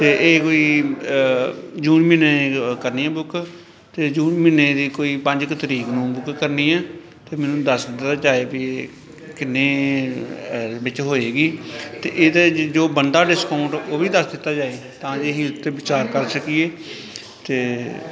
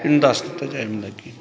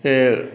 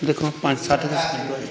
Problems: continuous background conversations